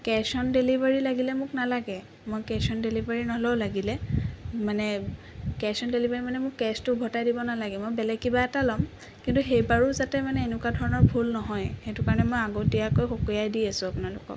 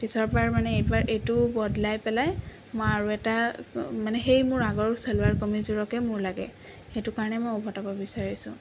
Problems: constant background noise